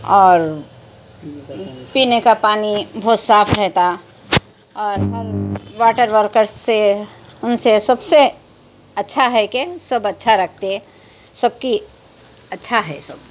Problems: constant background noise, background conversations at intervals